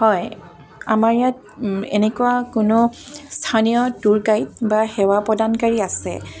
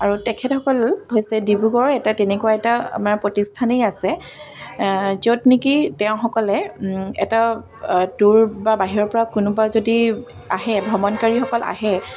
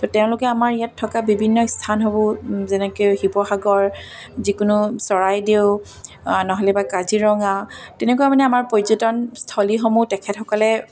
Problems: none marked